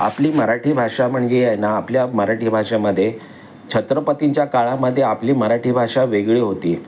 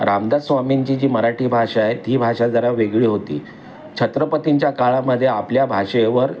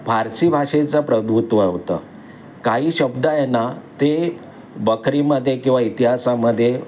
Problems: none marked